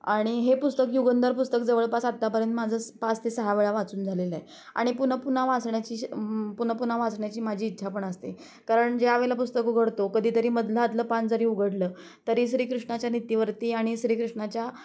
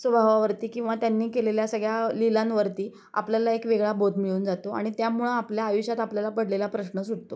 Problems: constant background noise, background conversations at intervals